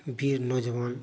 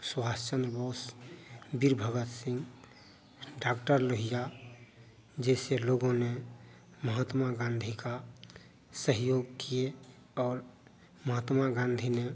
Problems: none marked